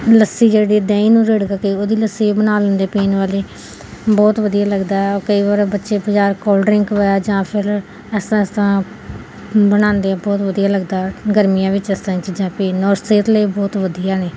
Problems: none marked